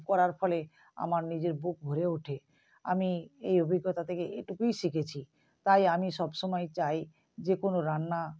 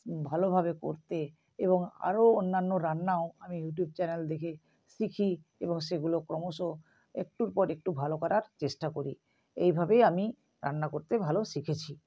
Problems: none marked